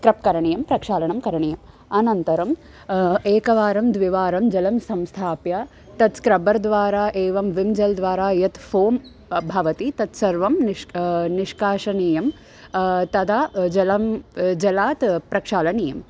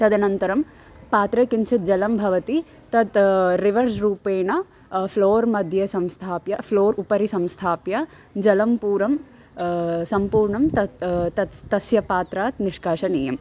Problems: constant background noise, background conversations at intervals